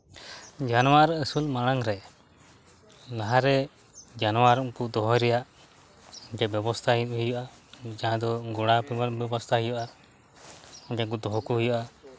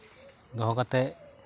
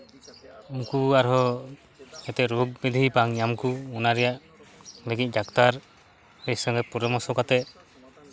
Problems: background sounds at intervals